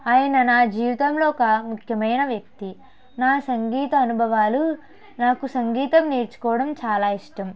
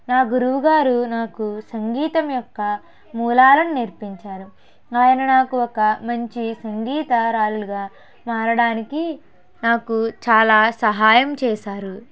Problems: background conversations at intervals